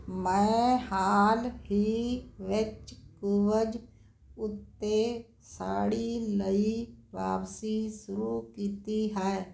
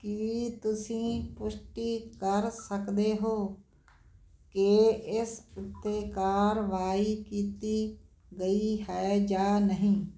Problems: constant background noise